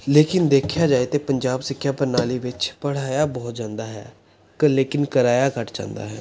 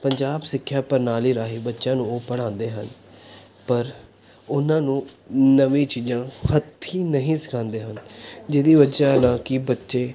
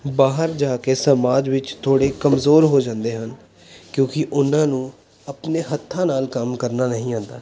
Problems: none marked